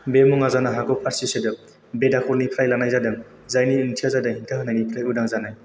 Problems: constant background noise